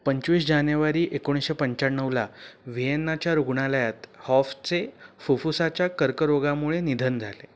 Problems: none marked